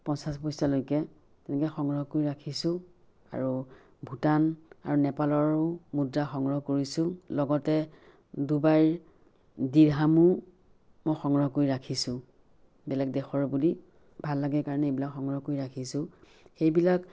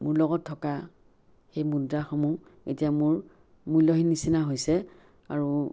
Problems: none marked